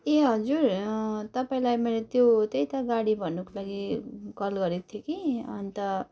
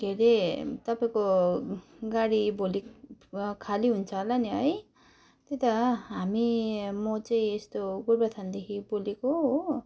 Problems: background sounds at intervals